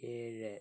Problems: low volume